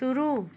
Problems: background conversations at intervals